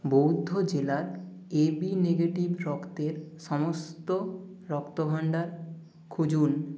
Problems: constant background noise